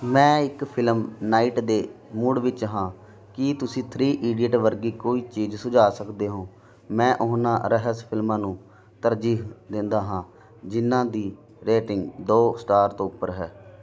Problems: constant background noise